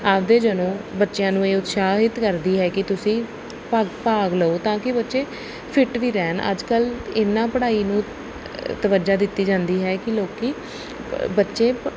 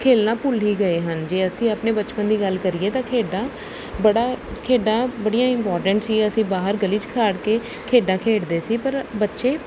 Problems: none marked